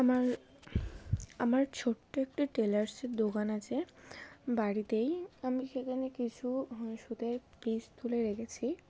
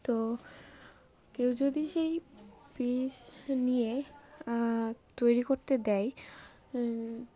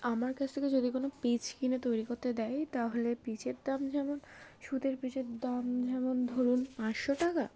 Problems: background sounds at intervals, background conversations at intervals